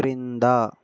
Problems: none marked